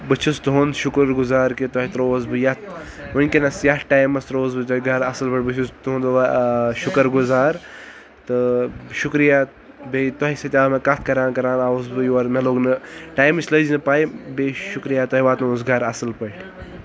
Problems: background sounds at intervals